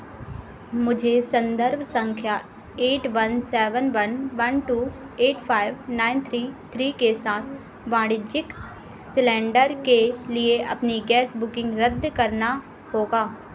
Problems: constant background noise